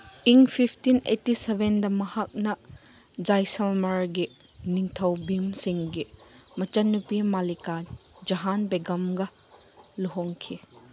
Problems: none marked